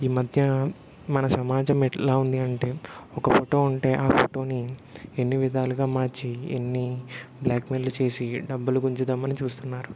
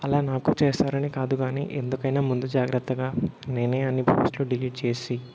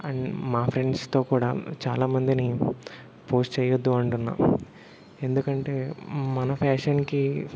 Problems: constant background noise